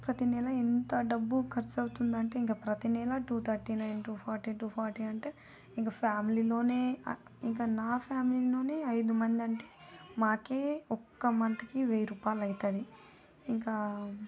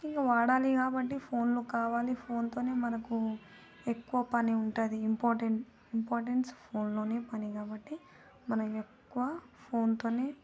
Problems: none marked